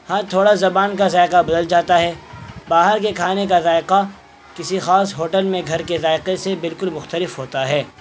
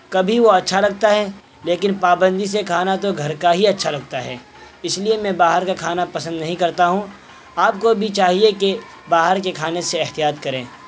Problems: constant background noise